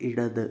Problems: none marked